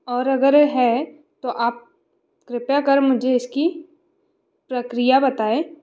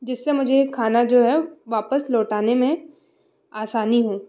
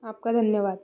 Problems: constant background noise